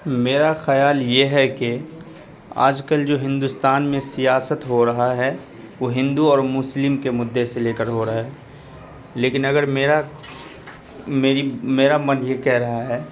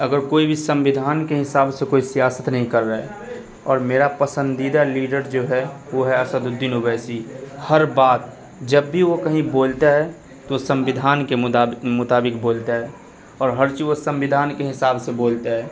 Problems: none marked